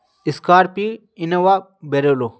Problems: none marked